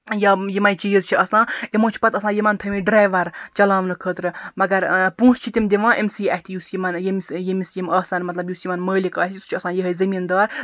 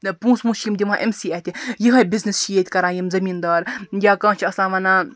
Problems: background sounds at intervals